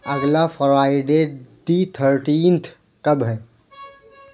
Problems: none marked